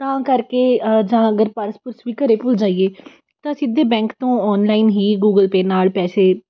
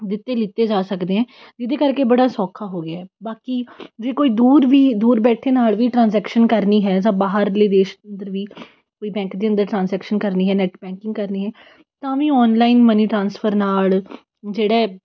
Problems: background sounds at intervals